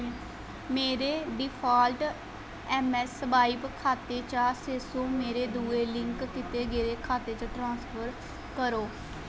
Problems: constant background noise